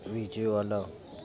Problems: background sounds at intervals